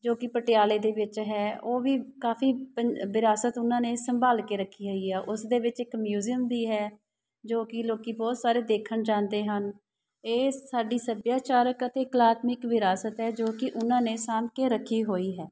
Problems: background sounds at intervals